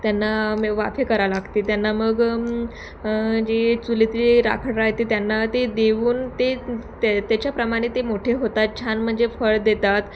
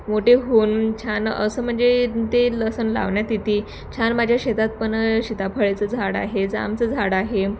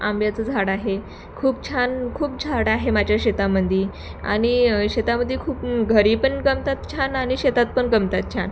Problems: constant background noise, background conversations at intervals